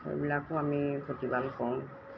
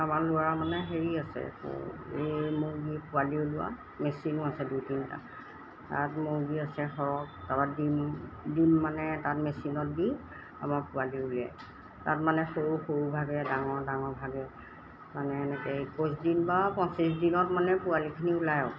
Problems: background sounds at intervals